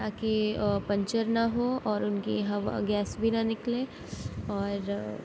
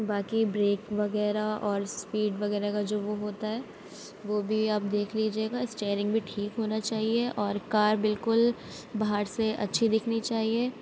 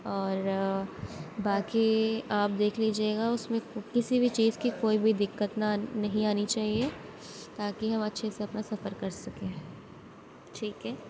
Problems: none marked